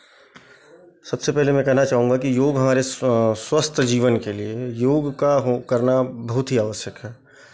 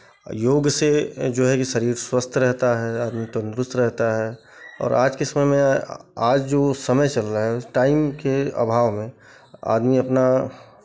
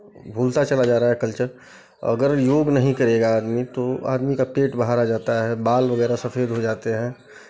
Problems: background sounds at intervals